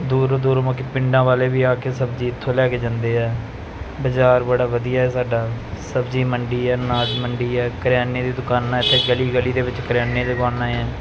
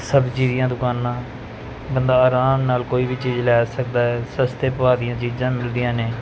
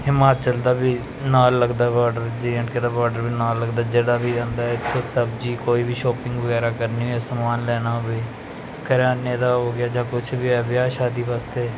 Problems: constant background noise